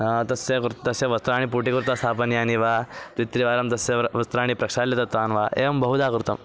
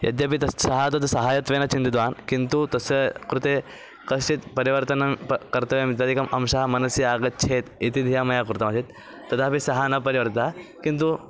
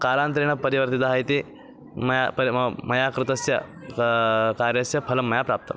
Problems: constant background noise, continuous background conversations